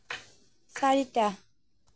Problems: background sounds at intervals